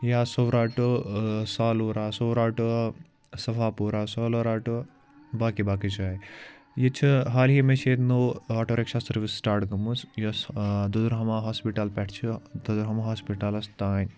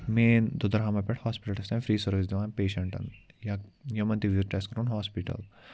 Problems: background conversations at intervals